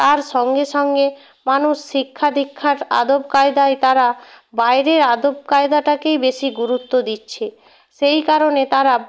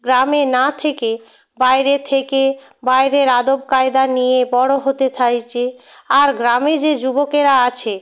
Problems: none marked